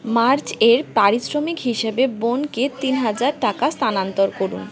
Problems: continuous background conversations